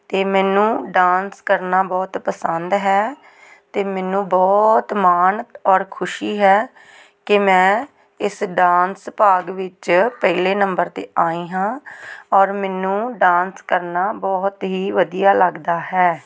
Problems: background conversations at intervals